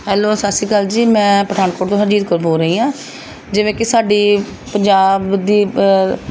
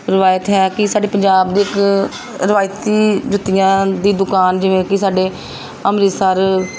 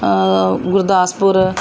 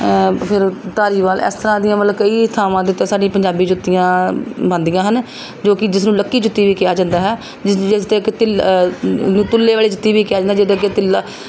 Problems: background sounds at intervals